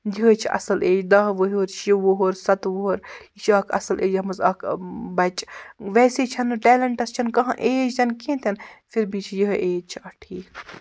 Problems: none marked